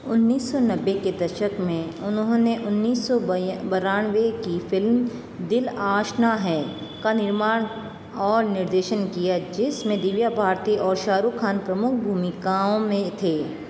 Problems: constant background noise